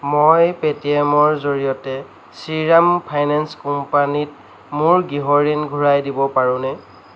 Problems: background sounds at intervals